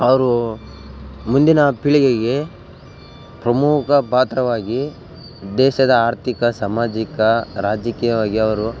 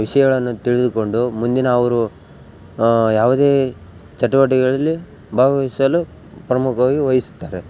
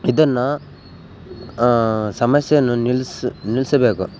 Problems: background sounds at intervals